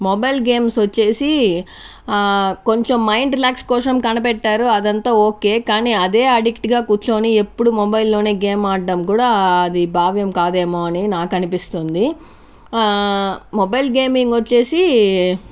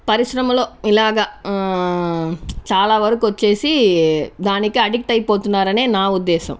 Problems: constant background noise